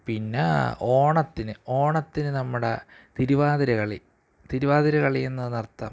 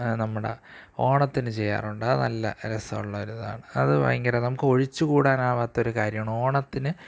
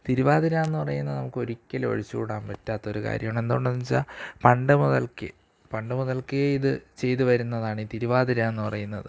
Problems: none marked